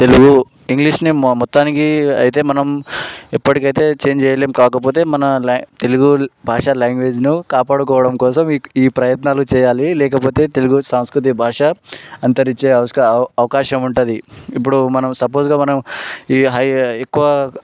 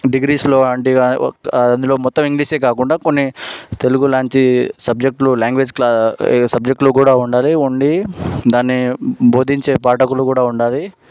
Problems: background sounds at intervals